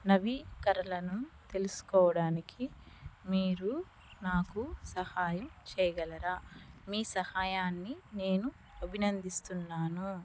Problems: background sounds at intervals, low volume